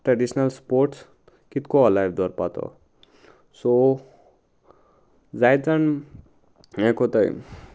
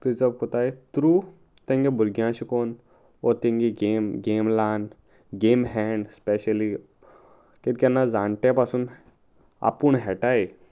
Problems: none marked